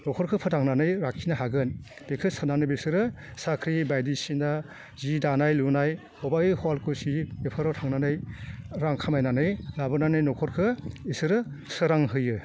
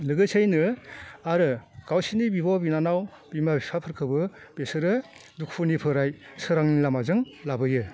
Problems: none marked